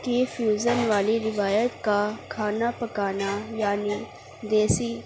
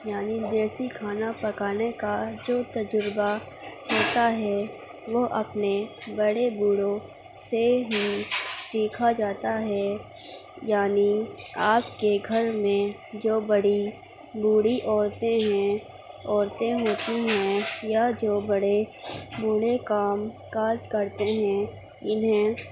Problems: constant background noise, low volume